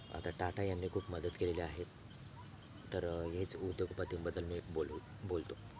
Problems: constant background noise, low volume